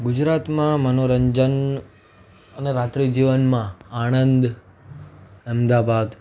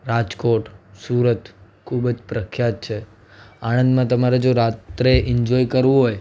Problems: none marked